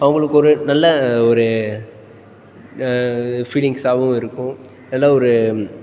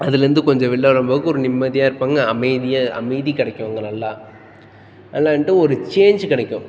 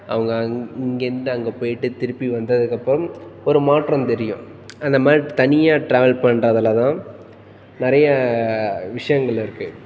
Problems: background sounds at intervals, background conversations at intervals